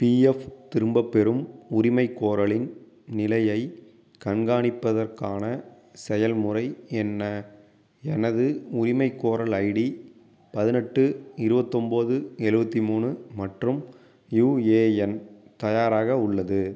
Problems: none marked